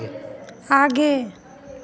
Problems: none marked